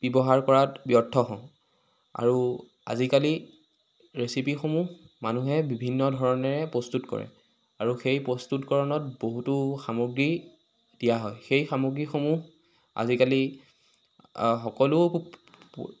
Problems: constant background noise